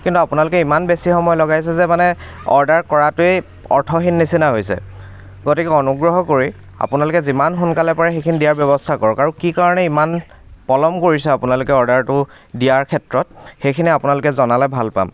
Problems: background sounds at intervals